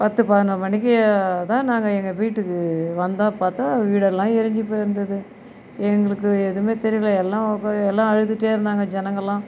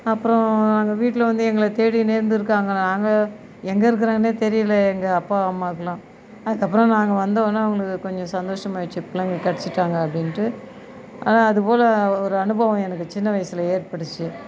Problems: background sounds at intervals